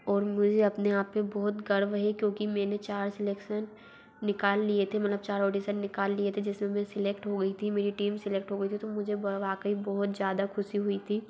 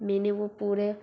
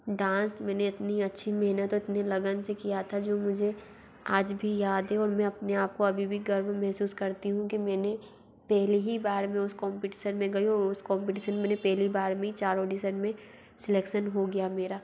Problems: background sounds at intervals